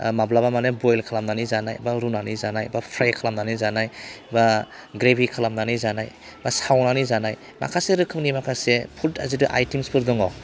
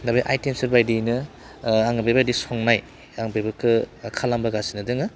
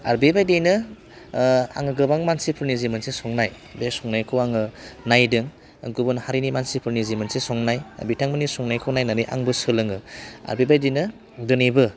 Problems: constant background noise